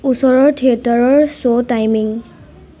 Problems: constant background noise